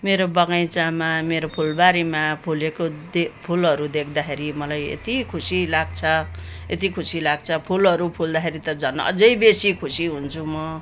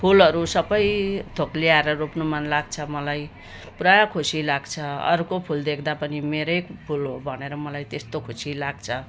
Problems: background sounds at intervals